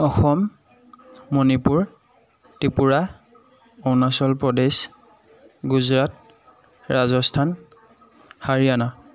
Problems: none marked